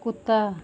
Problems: none marked